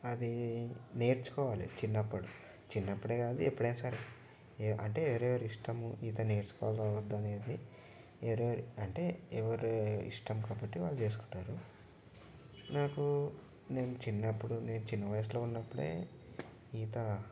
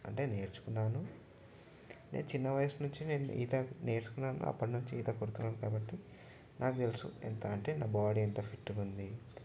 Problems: none marked